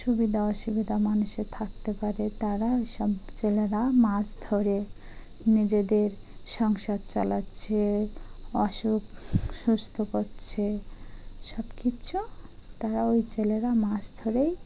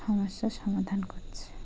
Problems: background sounds at intervals